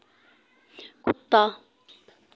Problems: none marked